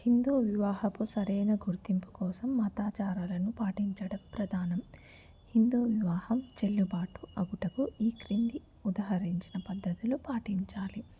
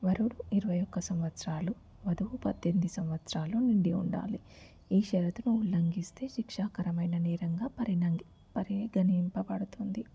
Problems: background sounds at intervals, low volume